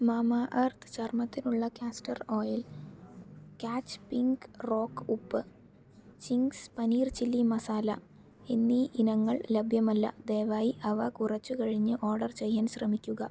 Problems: low volume